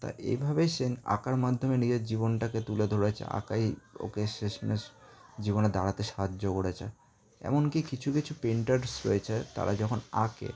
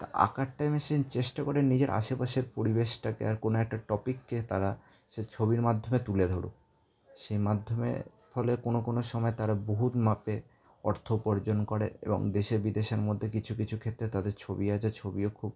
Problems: background conversations at intervals